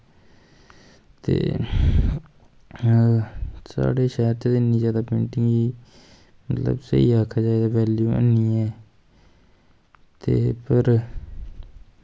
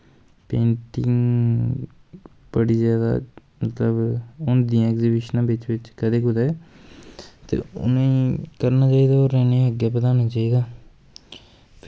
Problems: constant background noise